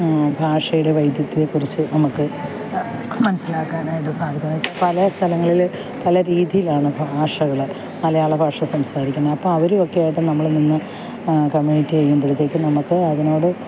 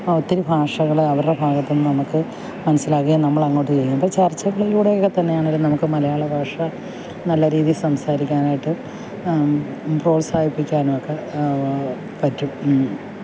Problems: background sounds at intervals